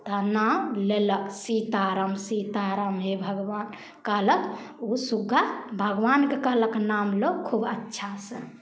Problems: none marked